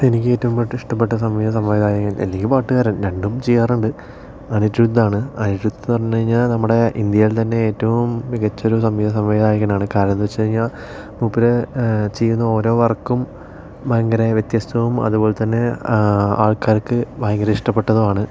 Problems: none marked